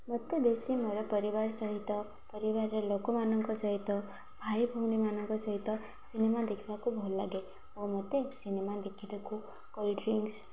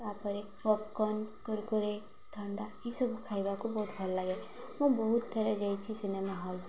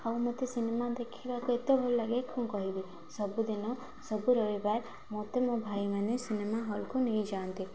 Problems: constant background noise